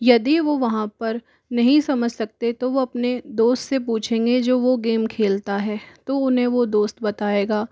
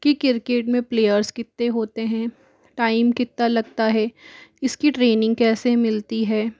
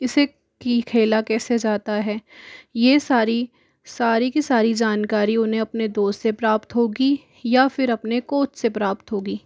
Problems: background sounds at intervals